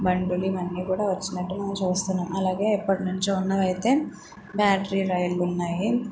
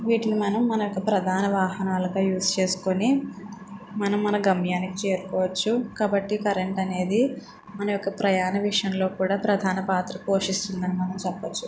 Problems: background sounds at intervals